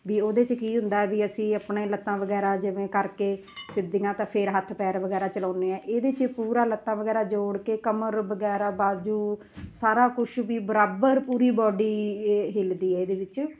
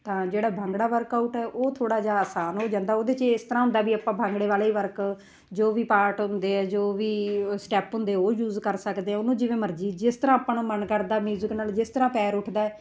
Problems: background sounds at intervals